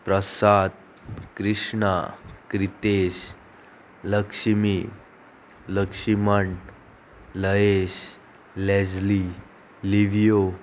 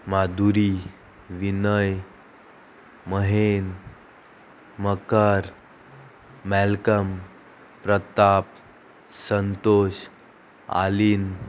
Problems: constant background noise, continuous background conversations